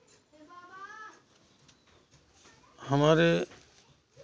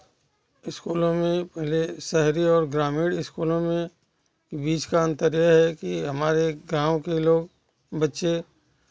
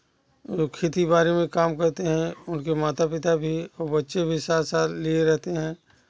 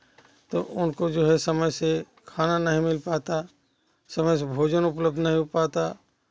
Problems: continuous background conversations